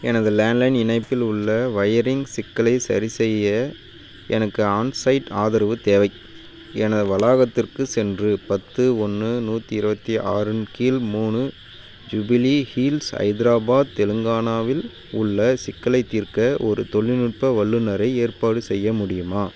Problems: constant background noise